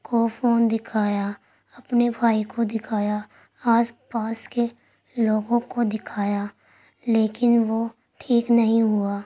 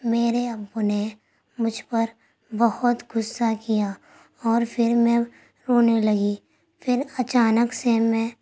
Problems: constant background noise